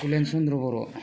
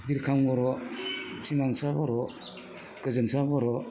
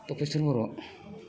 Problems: background sounds at intervals